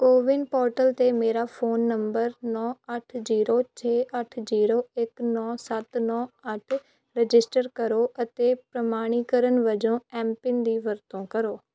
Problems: background sounds at intervals